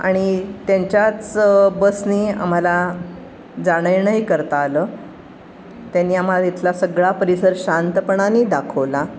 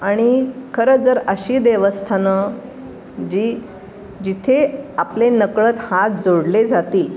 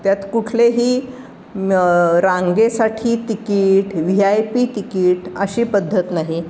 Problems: constant background noise